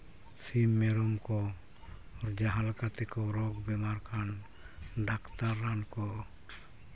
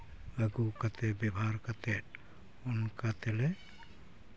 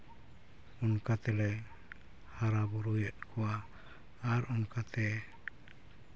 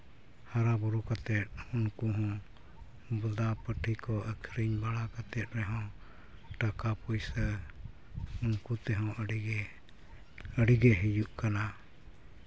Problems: none marked